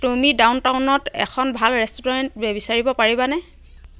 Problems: background conversations at intervals